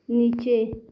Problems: constant background noise